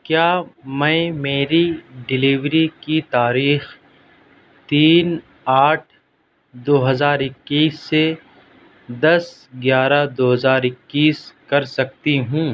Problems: none marked